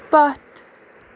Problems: constant background noise